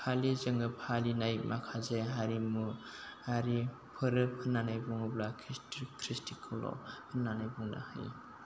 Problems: constant background noise